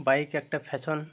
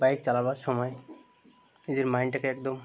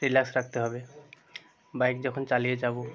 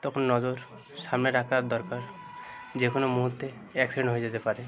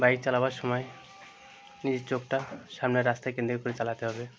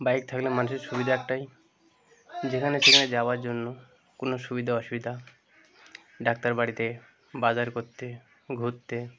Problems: constant background noise, continuous background conversations